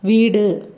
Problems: none marked